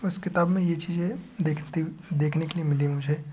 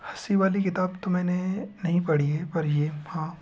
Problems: background sounds at intervals